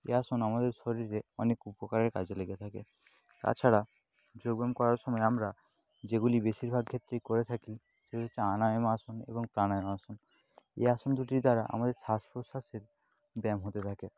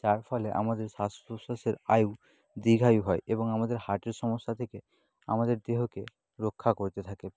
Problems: constant background noise, low volume